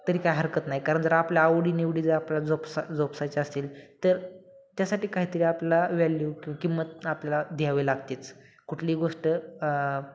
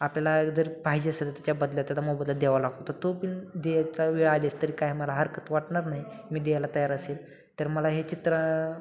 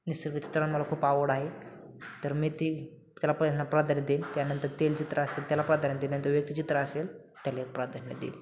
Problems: constant background noise